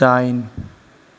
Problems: constant background noise